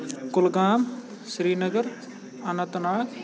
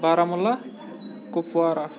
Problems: constant background noise, continuous background conversations